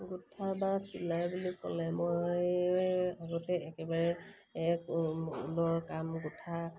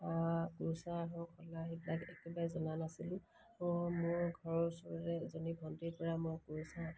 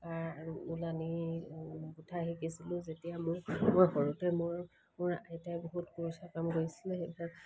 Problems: none marked